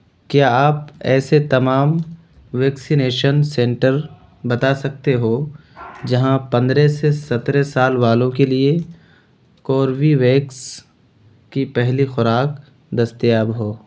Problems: constant background noise